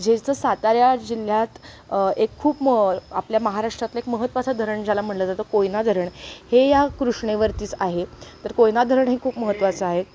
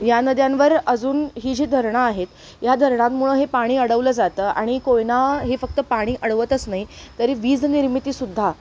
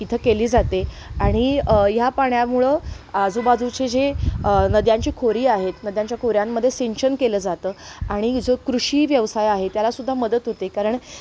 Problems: background sounds at intervals